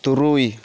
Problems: none marked